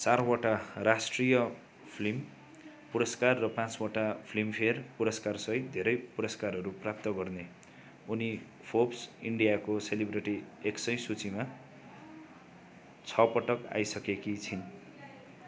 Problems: continuous background conversations